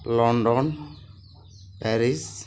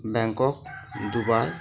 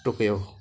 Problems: none marked